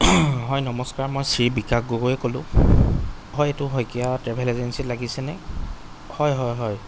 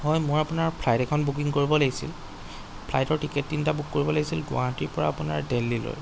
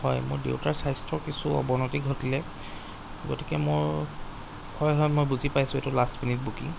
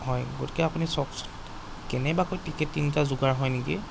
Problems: background sounds at intervals